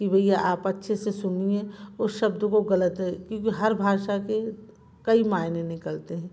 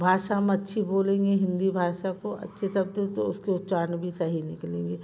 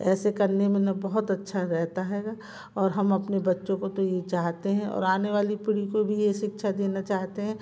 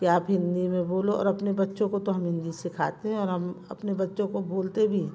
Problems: constant background noise